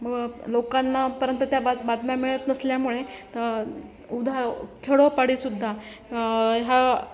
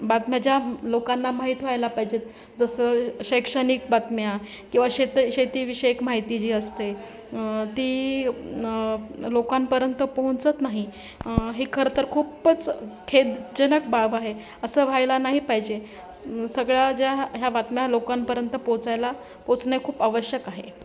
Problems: constant background noise, continuous background conversations